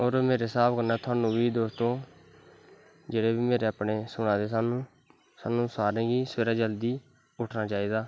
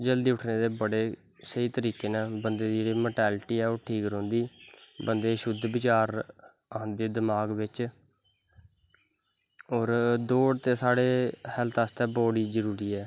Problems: constant background noise